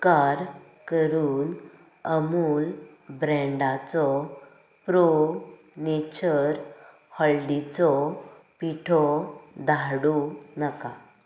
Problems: background conversations at intervals